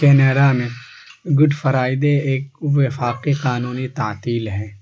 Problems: constant background noise